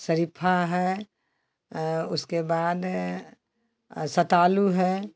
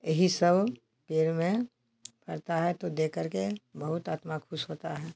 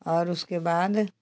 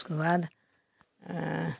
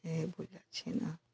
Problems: none marked